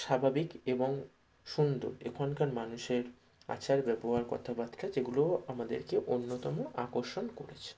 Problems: none marked